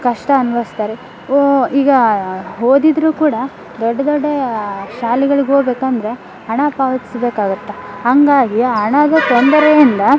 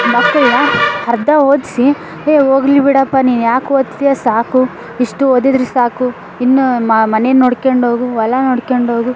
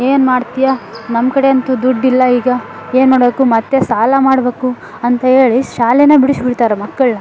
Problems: background sounds at intervals